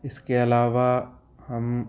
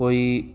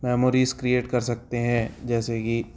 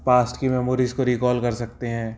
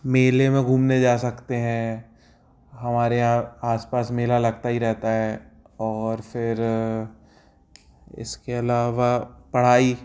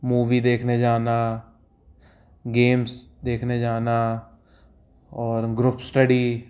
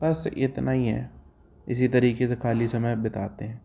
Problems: background sounds at intervals